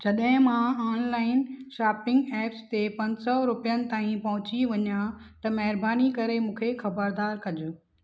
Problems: none marked